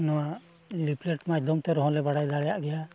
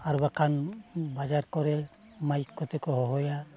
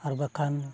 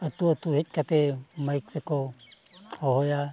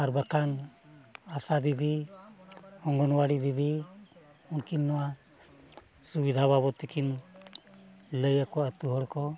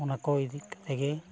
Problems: background sounds at intervals, continuous background conversations